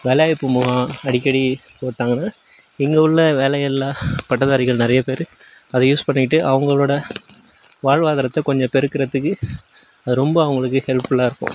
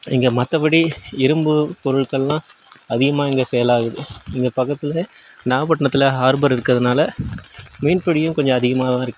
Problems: background sounds at intervals